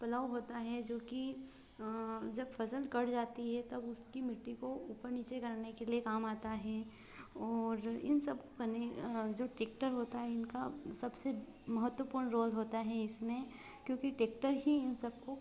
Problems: constant background noise